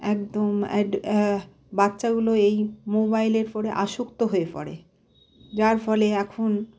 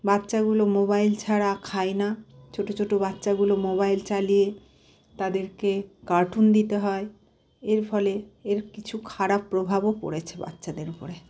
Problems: constant background noise